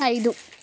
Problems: none marked